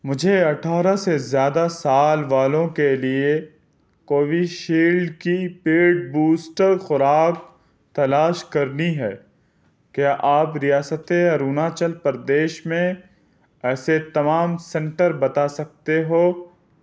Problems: none marked